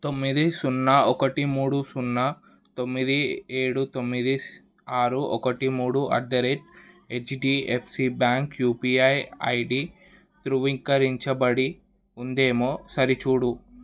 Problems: none marked